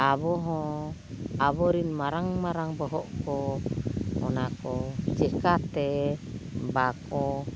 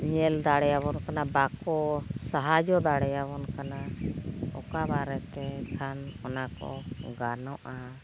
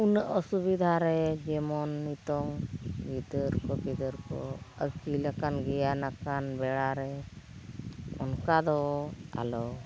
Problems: constant background noise